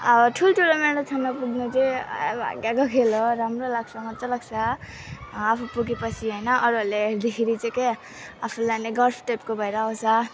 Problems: continuous background conversations